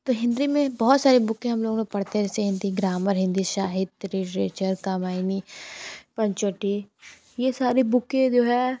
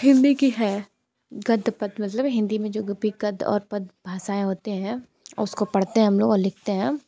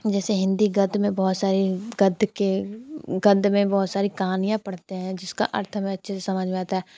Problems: none marked